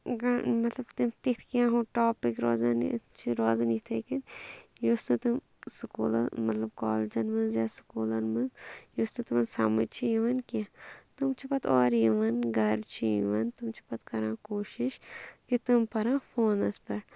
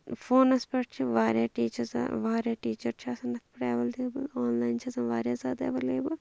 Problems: none marked